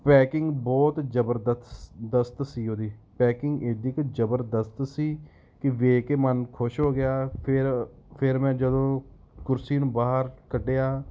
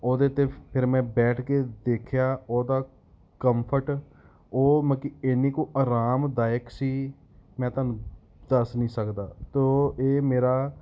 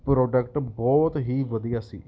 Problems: background sounds at intervals